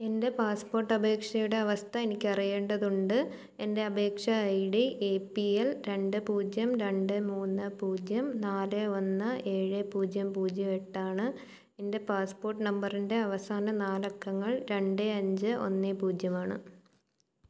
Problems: none marked